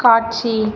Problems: none marked